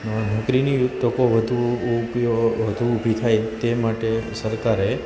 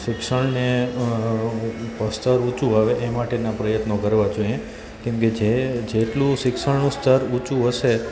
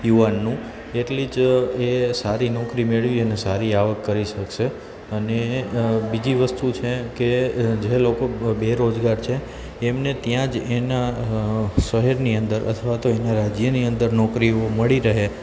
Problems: constant background noise